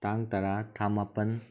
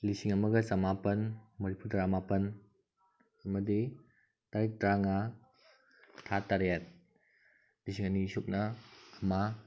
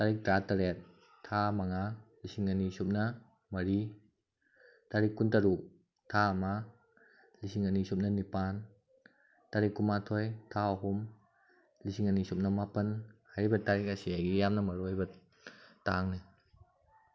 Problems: none marked